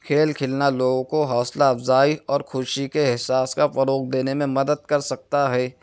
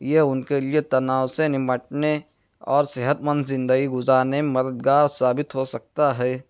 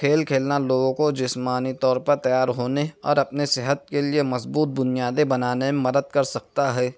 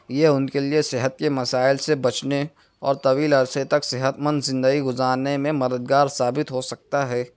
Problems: none marked